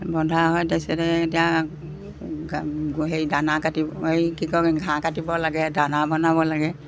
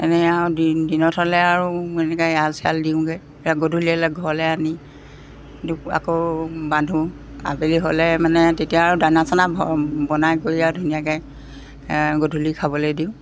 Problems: background sounds at intervals